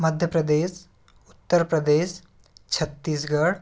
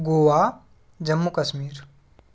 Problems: background sounds at intervals